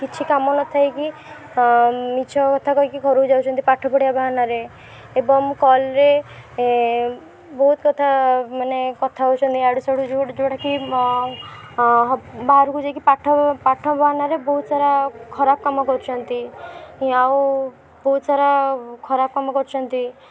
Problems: background sounds at intervals, background conversations at intervals